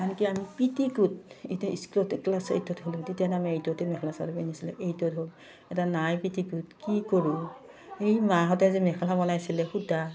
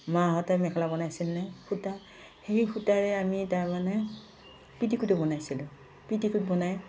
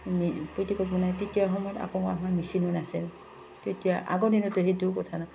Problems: none marked